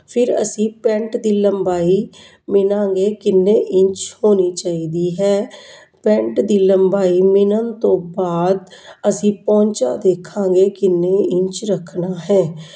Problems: none marked